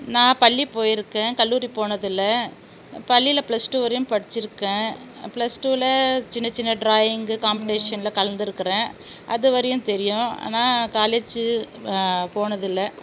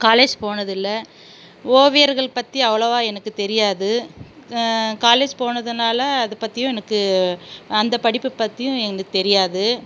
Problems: none marked